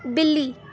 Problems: background sounds at intervals, continuous background conversations